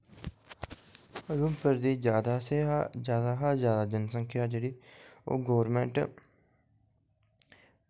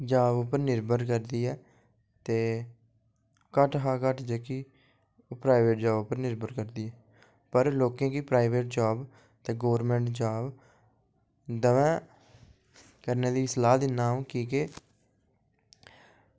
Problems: low volume